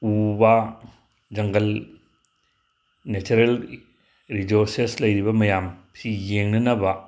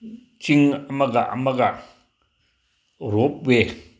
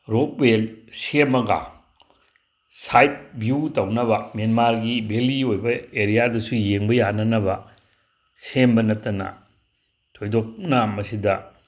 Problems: none marked